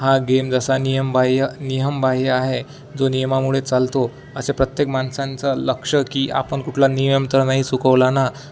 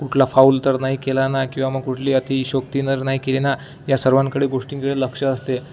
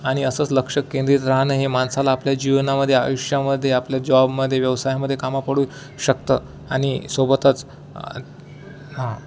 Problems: none marked